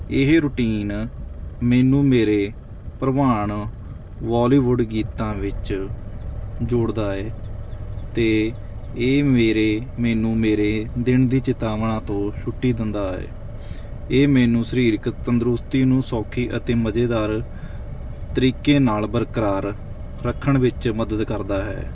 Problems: background sounds at intervals